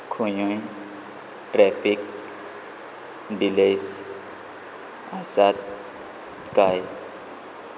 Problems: none marked